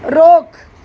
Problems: constant background noise